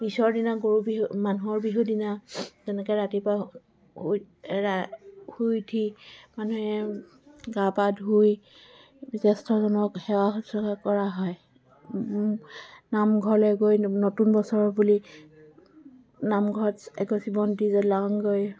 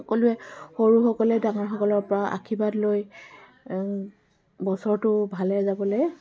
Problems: background sounds at intervals, continuous background conversations